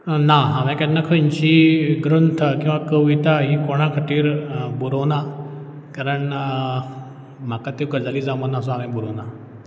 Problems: background sounds at intervals